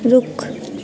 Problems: background sounds at intervals, low volume